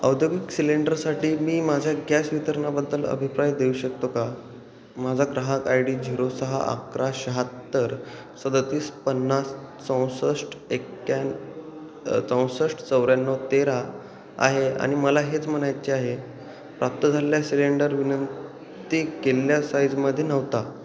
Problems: constant background noise, background conversations at intervals, echo